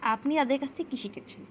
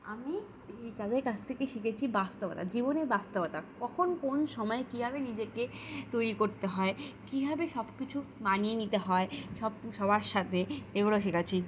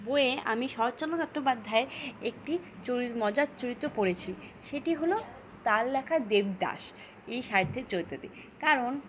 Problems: constant background noise